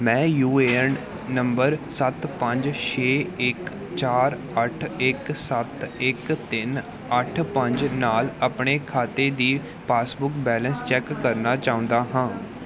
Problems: background sounds at intervals